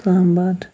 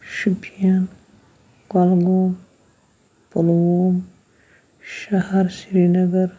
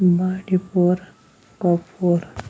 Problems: background sounds at intervals